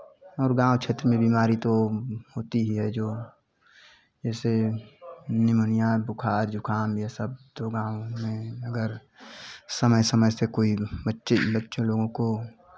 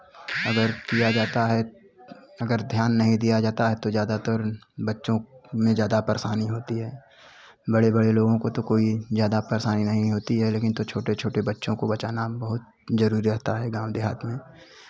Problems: none marked